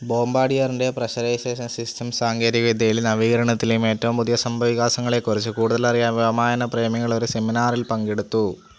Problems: constant background noise